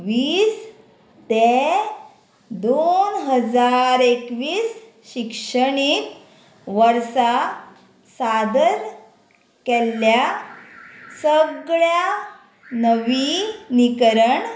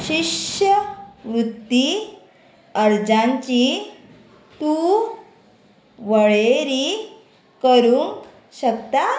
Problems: constant background noise